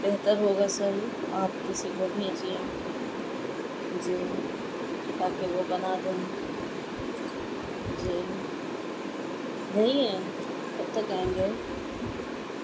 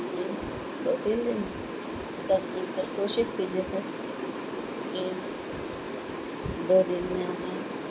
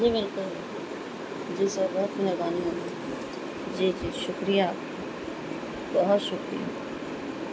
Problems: constant background noise, low volume